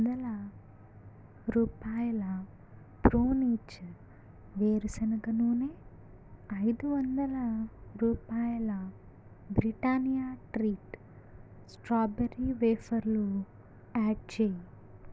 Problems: low volume